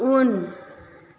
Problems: constant background noise